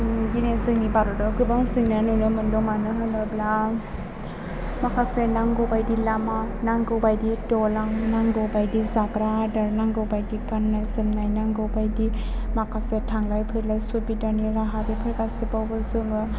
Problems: constant background noise, background conversations at intervals